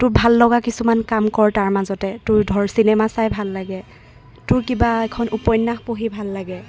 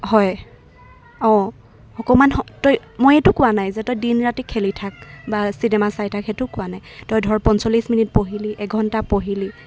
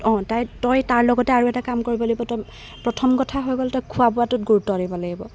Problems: background sounds at intervals